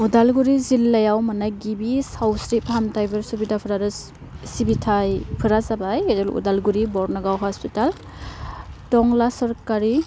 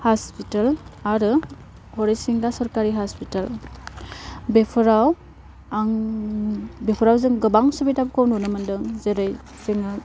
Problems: constant background noise